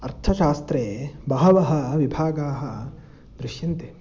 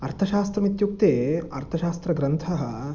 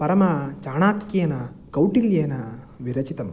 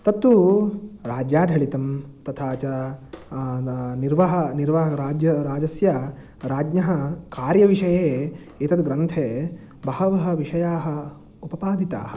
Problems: background sounds at intervals